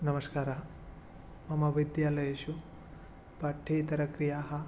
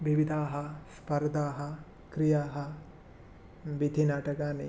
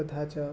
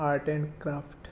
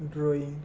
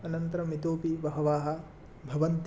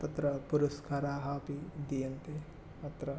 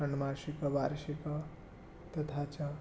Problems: none marked